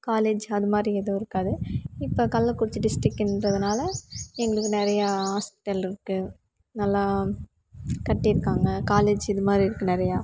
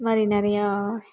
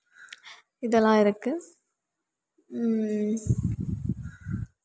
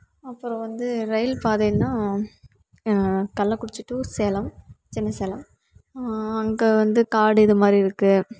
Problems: background sounds at intervals